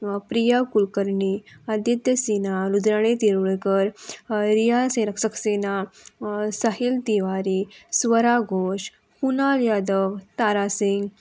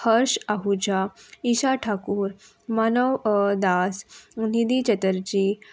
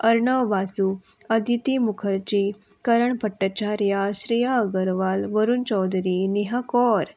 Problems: constant background noise